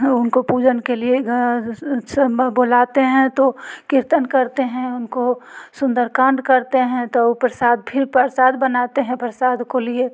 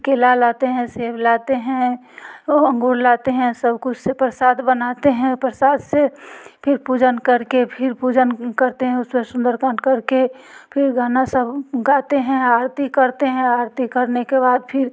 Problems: none marked